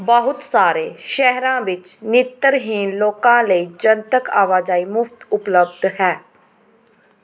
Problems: background sounds at intervals